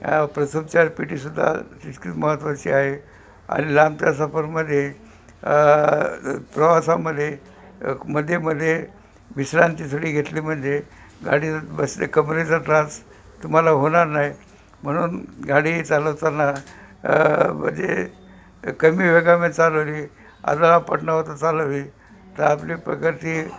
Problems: constant background noise, background conversations at intervals